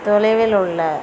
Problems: background sounds at intervals